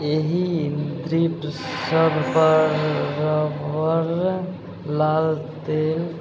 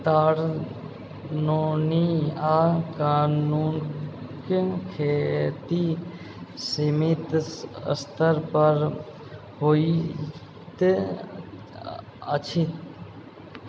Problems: background sounds at intervals